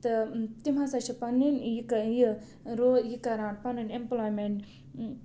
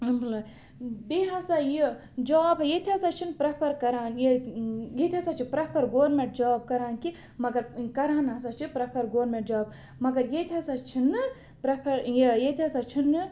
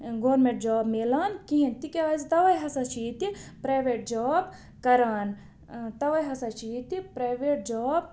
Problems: none marked